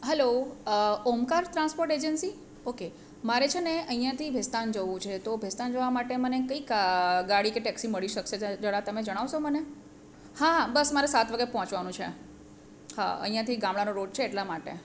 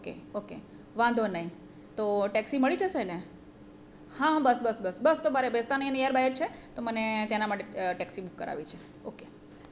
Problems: none marked